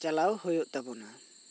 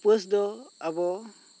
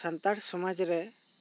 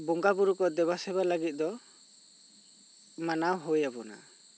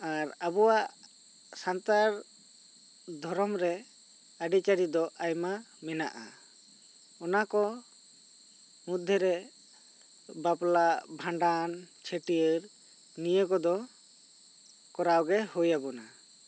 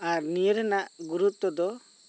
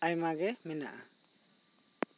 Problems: constant background noise